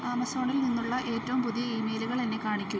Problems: constant background noise